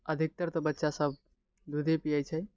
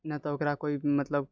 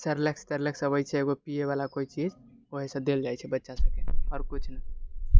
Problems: none marked